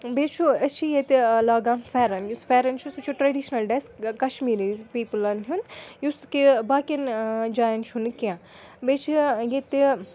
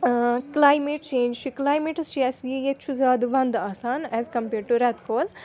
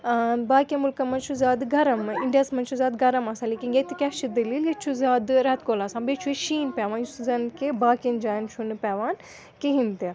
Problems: continuous background conversations